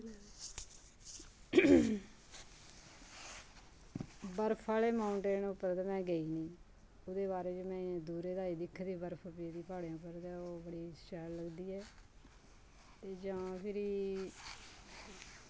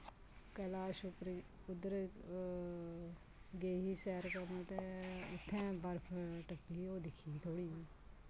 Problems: constant background noise